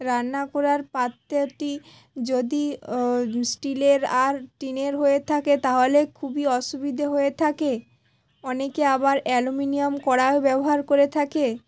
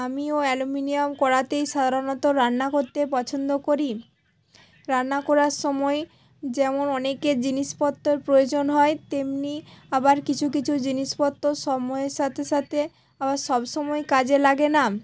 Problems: background sounds at intervals, background conversations at intervals